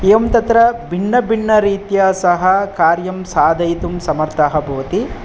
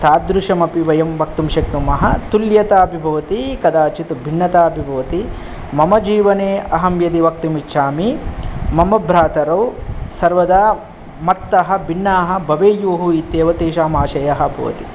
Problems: none marked